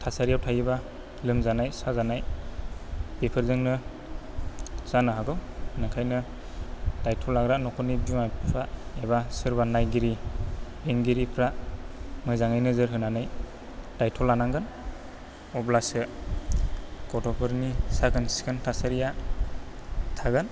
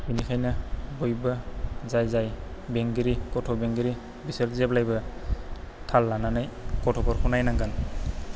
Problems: low volume